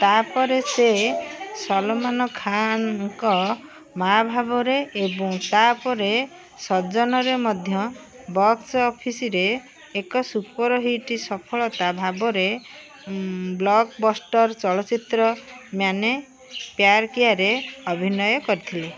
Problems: constant background noise